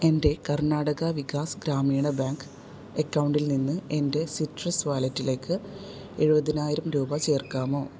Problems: background sounds at intervals